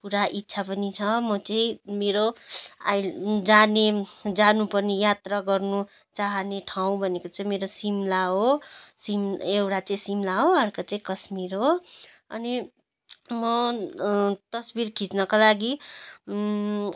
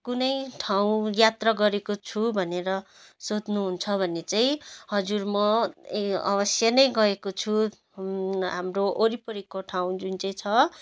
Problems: none marked